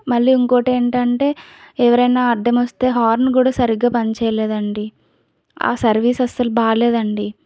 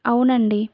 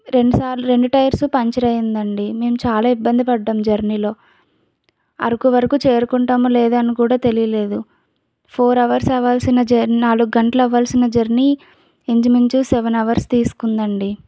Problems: none marked